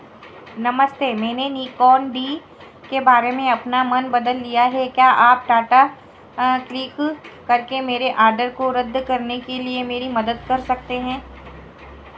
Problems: constant background noise